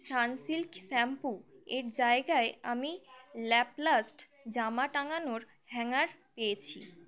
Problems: constant background noise